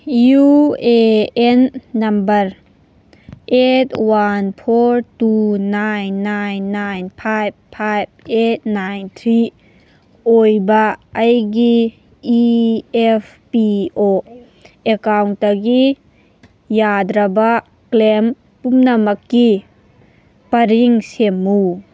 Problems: background sounds at intervals